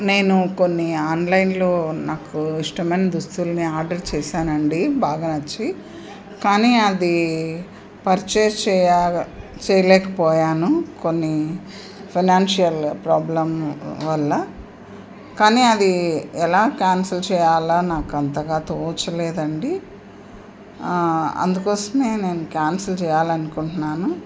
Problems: constant background noise